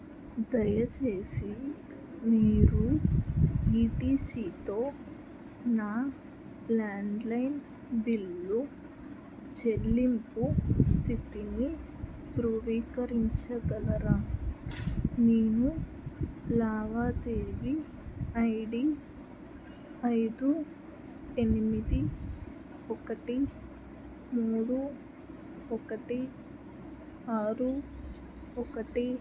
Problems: background sounds at intervals